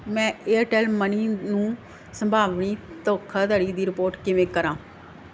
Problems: none marked